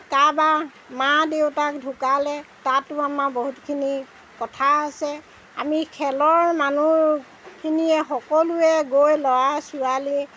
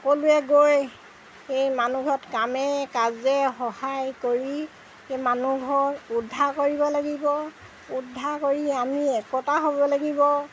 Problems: background sounds at intervals